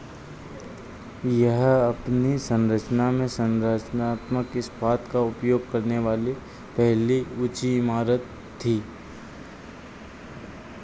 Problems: none marked